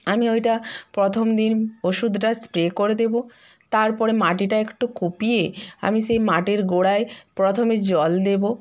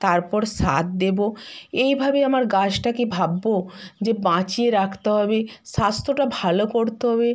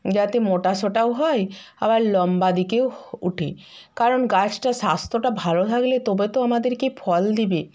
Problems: none marked